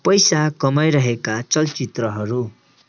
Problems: constant background noise